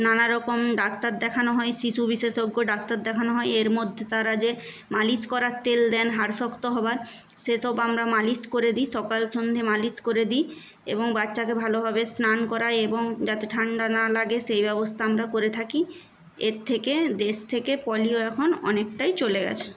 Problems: background sounds at intervals